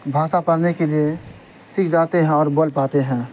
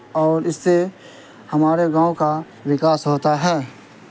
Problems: constant background noise